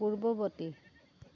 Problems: constant background noise, low volume